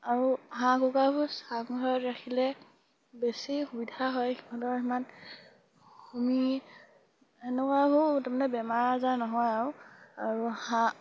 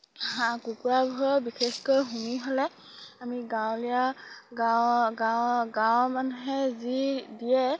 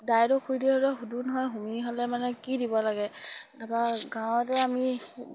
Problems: none marked